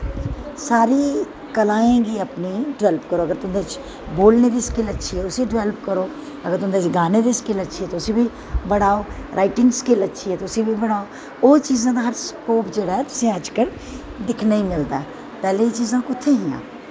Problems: constant background noise, echo